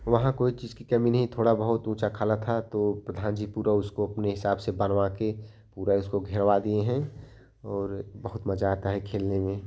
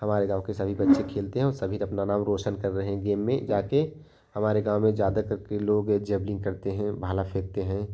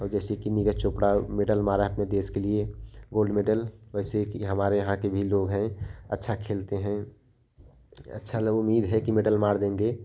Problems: none marked